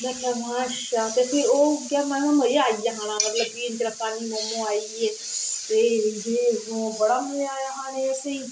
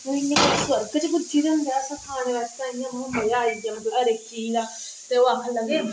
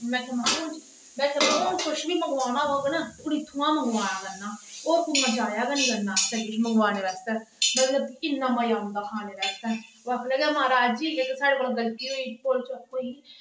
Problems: background sounds at intervals